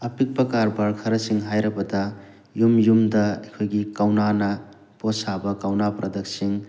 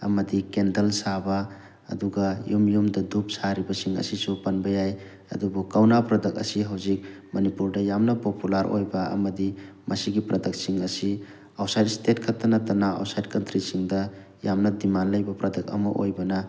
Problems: none marked